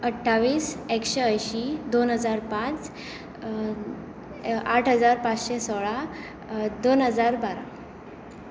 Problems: constant background noise